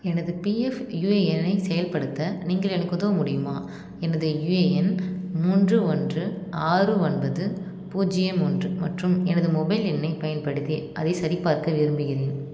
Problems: background sounds at intervals